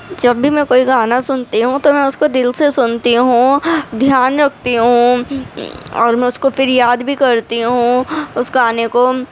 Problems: constant background noise, background conversations at intervals